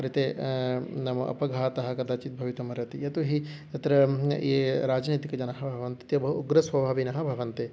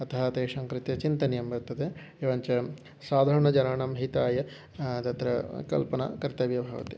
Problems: none marked